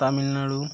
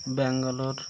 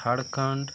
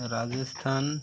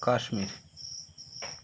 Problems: constant background noise